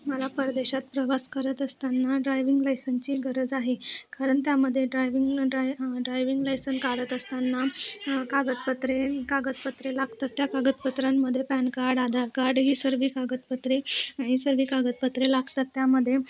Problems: none marked